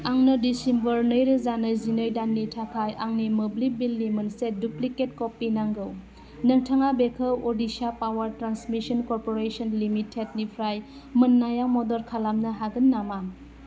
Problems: constant background noise